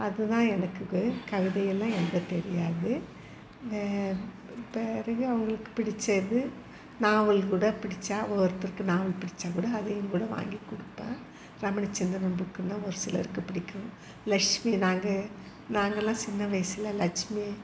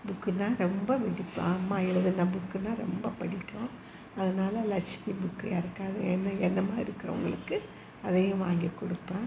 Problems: constant background noise, background conversations at intervals